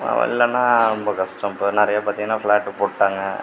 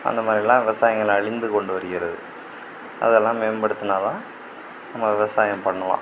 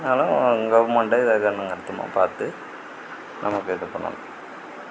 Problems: constant background noise